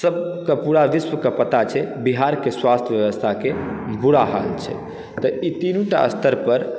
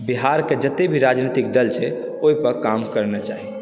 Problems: background sounds at intervals, background conversations at intervals